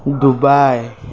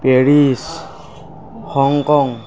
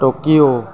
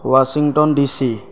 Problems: constant background noise